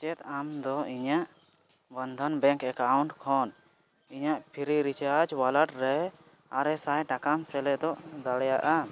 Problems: background sounds at intervals